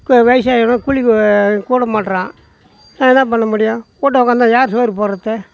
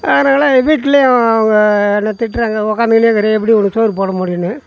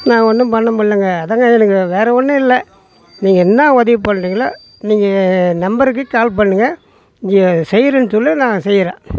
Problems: background sounds at intervals, background conversations at intervals